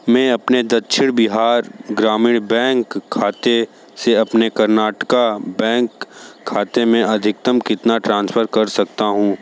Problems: constant background noise